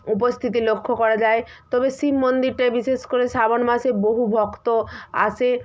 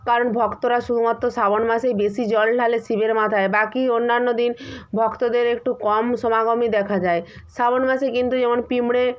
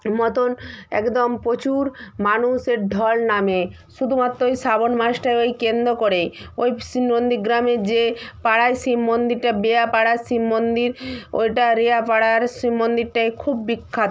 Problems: none marked